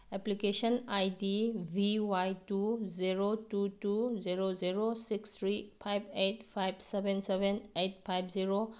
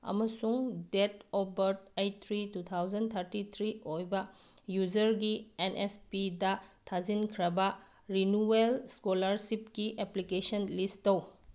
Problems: none marked